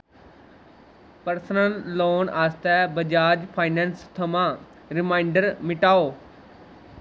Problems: constant background noise